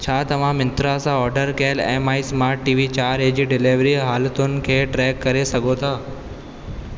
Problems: constant background noise, echo